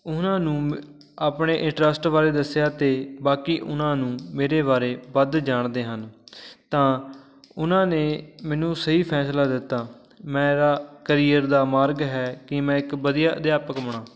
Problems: constant background noise